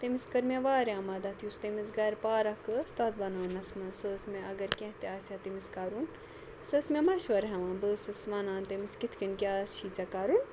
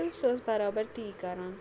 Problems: none marked